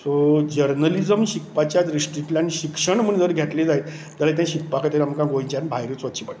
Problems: none marked